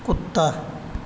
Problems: constant background noise